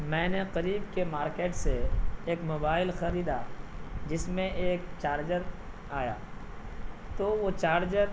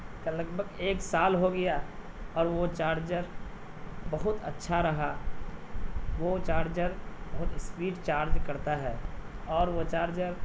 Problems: low volume